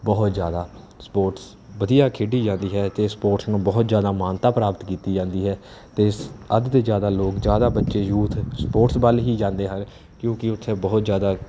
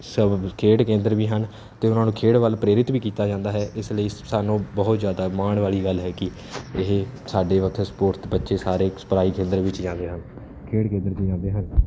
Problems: none marked